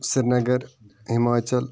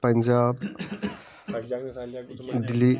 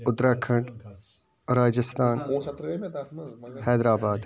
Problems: constant background noise